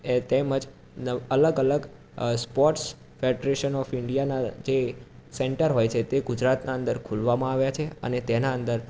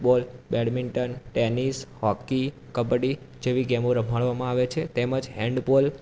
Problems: constant background noise